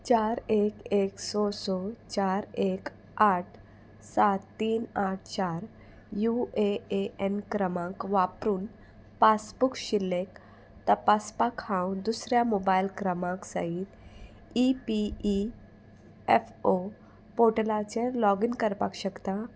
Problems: constant background noise